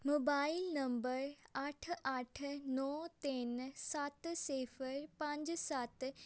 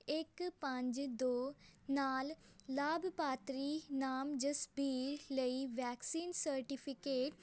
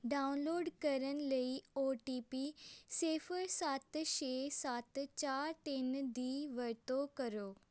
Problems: none marked